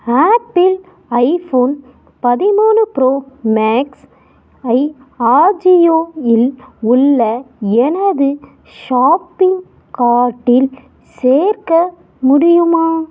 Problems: background sounds at intervals